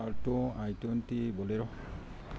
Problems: low volume